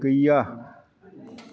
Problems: none marked